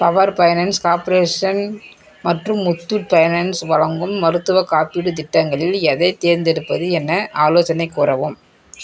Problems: continuous background conversations